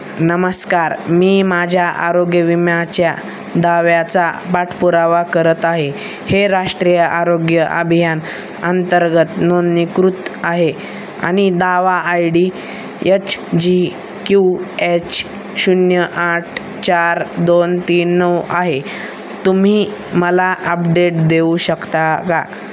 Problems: none marked